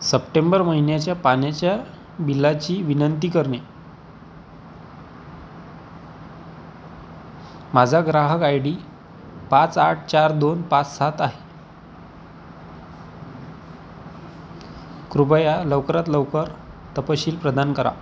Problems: constant background noise